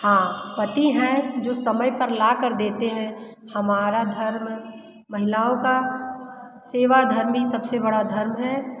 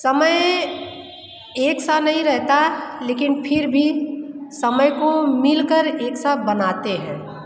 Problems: constant background noise, background conversations at intervals